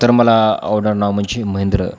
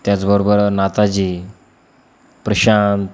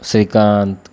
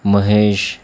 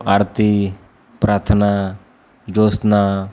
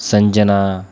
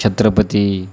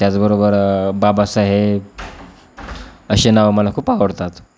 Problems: none marked